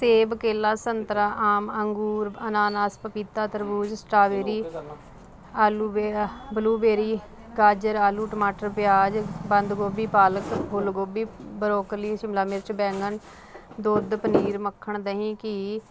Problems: constant background noise